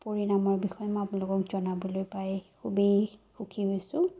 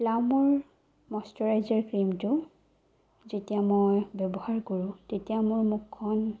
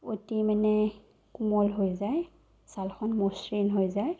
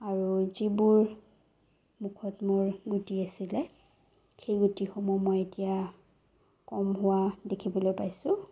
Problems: low volume